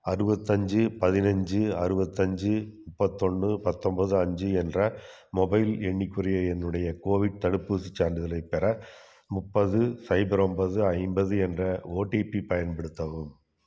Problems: none marked